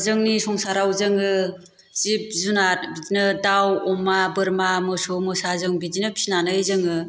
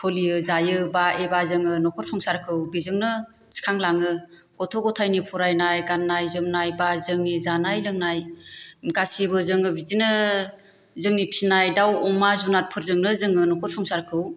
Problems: constant background noise